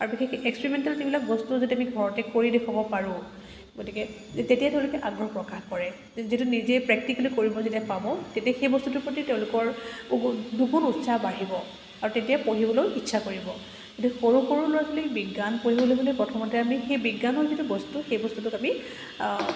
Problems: none marked